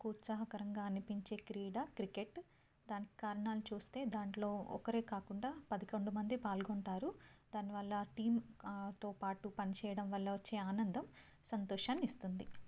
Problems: low volume